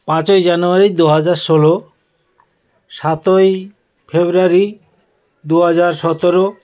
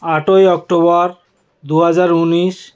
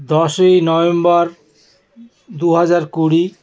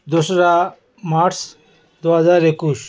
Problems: none marked